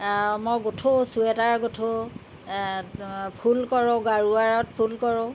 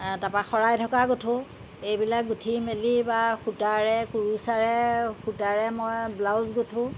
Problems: constant background noise